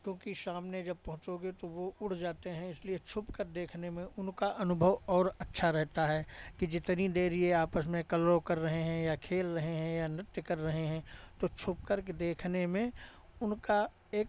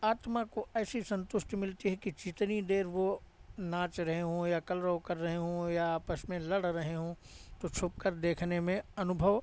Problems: none marked